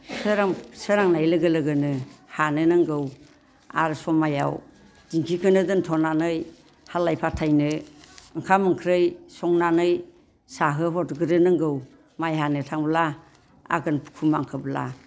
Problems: constant background noise